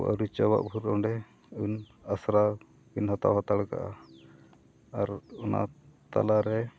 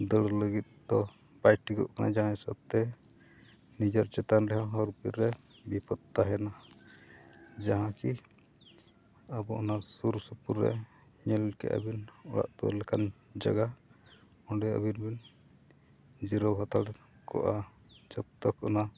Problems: none marked